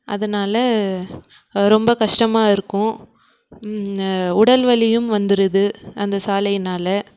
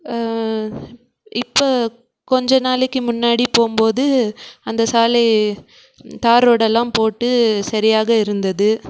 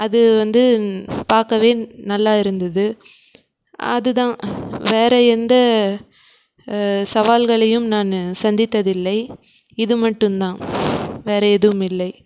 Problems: background sounds at intervals